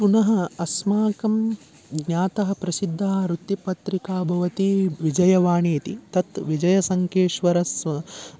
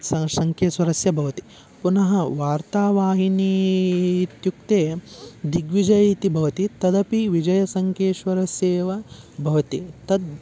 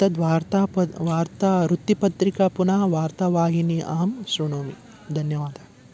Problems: background sounds at intervals